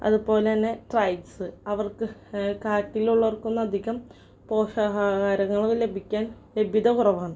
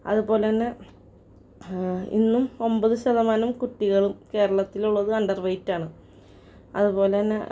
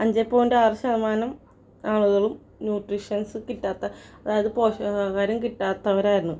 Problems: none marked